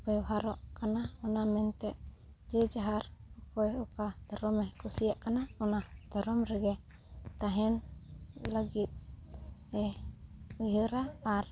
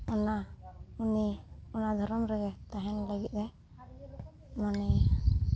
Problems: background sounds at intervals, background conversations at intervals